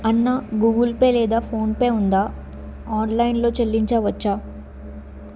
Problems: constant background noise